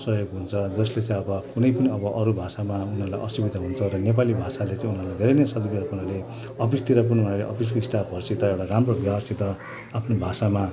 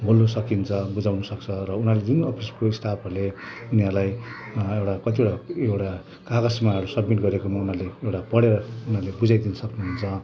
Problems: constant background noise, background conversations at intervals